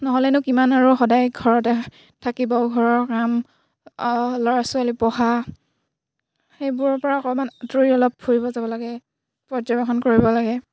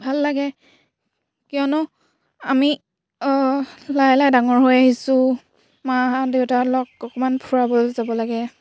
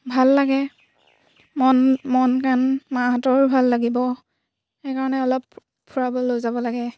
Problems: background sounds at intervals